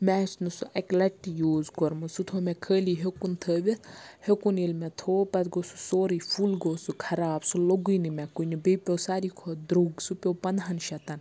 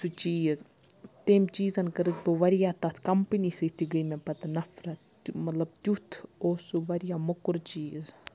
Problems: none marked